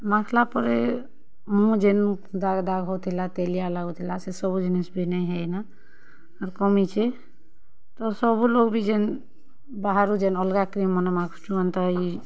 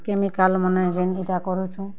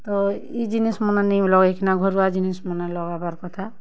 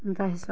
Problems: background sounds at intervals, background conversations at intervals